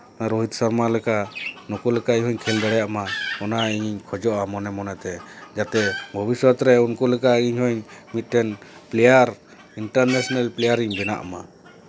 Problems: none marked